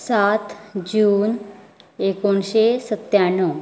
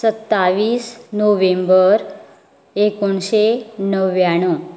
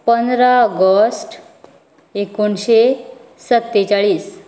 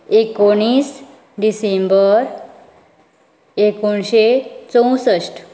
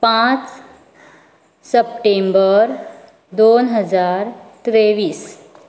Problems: background sounds at intervals